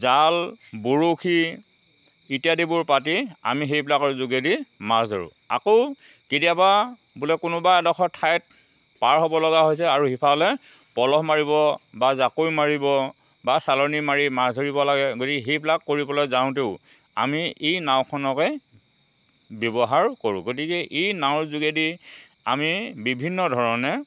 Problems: constant background noise